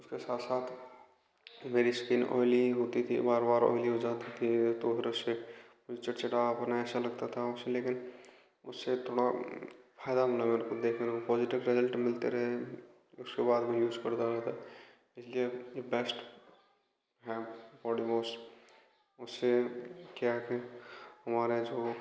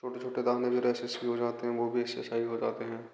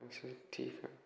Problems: constant background noise, background conversations at intervals, echo